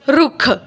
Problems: background sounds at intervals